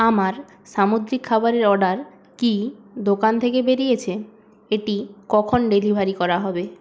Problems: constant background noise